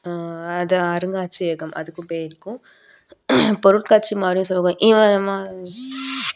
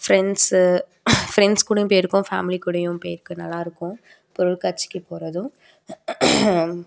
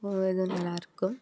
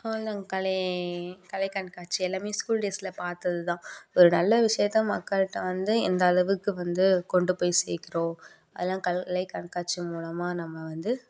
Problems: background sounds at intervals